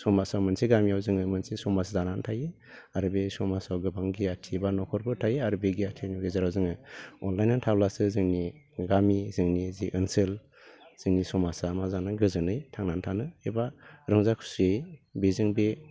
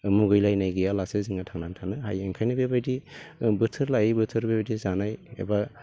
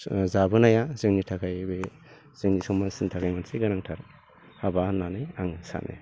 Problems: low volume